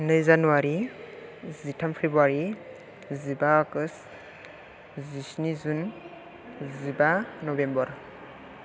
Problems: none marked